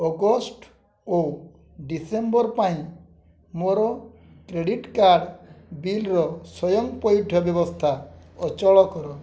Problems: none marked